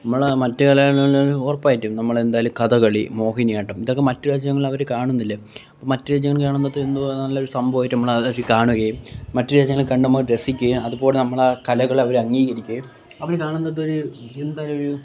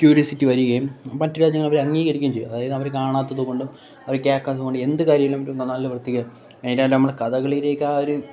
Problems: none marked